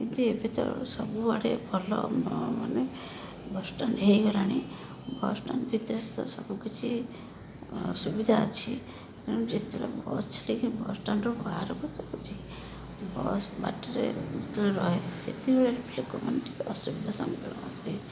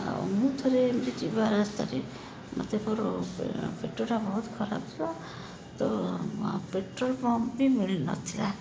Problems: none marked